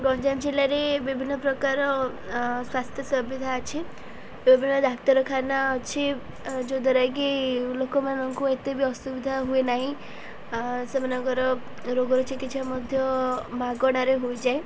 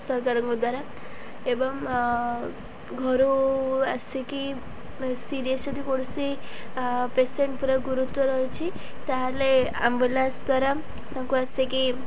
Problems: none marked